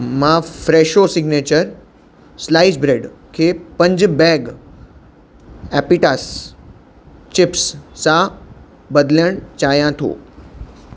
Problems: constant background noise